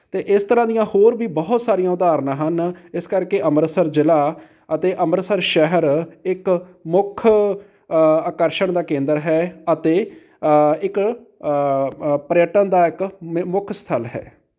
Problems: none marked